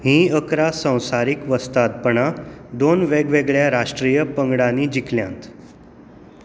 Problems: background sounds at intervals